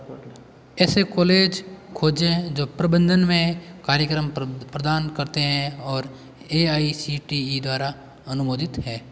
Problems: constant background noise